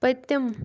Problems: constant background noise